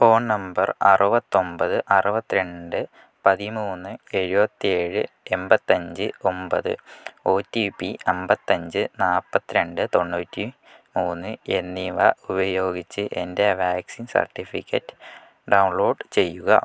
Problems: low volume